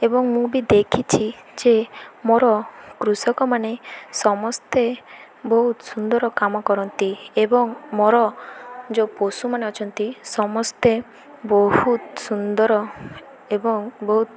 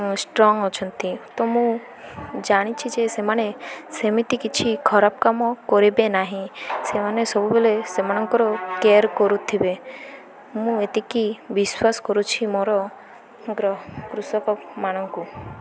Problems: none marked